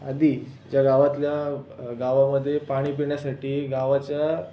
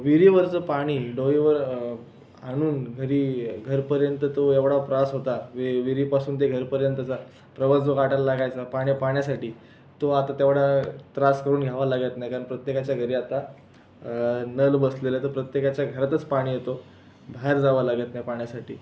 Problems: constant background noise